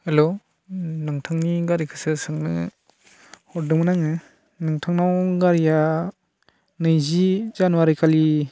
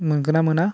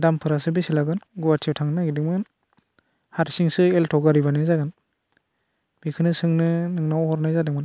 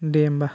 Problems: none marked